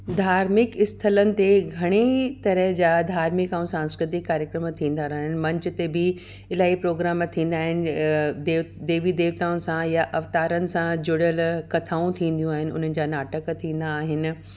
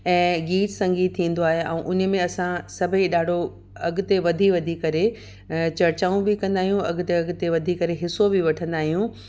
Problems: none marked